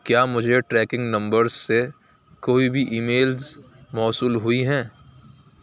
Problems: none marked